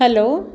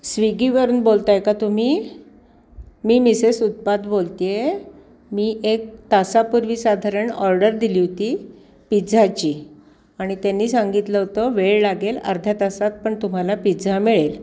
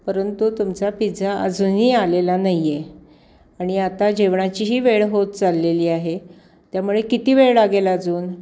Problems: background sounds at intervals